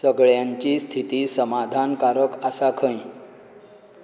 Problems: constant background noise